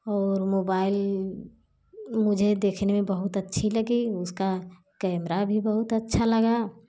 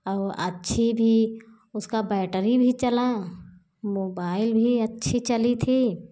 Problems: background sounds at intervals